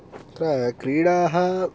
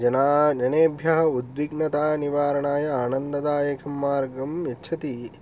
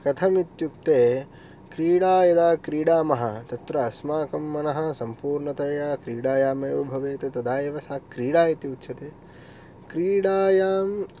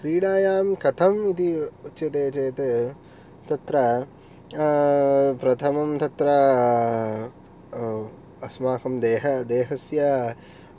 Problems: none marked